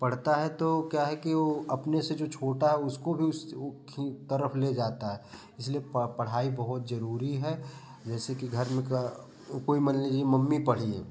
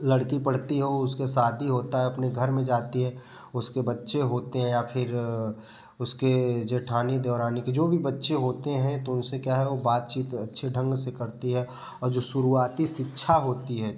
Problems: background sounds at intervals, background conversations at intervals